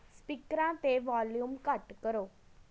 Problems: none marked